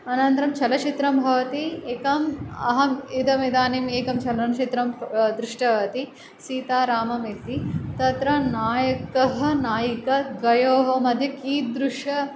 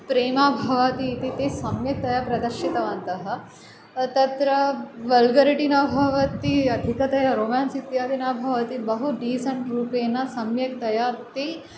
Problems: none marked